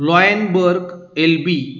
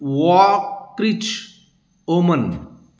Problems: constant background noise